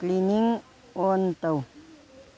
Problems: background conversations at intervals